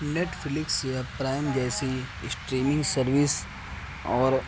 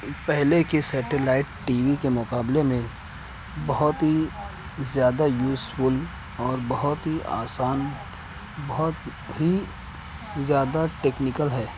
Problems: constant background noise, low volume